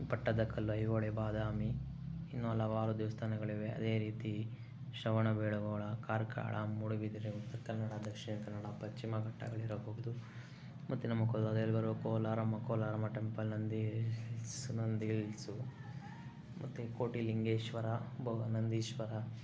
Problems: low volume